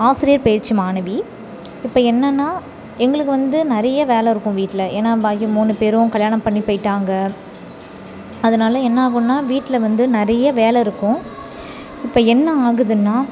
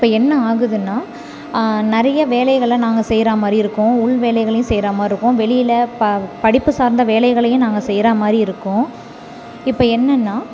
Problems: constant background noise